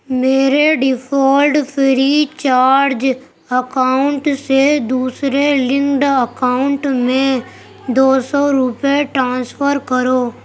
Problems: none marked